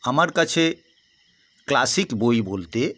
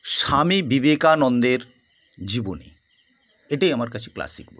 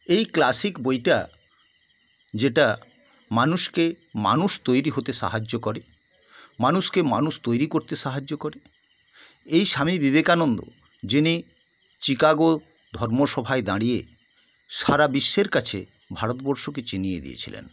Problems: constant background noise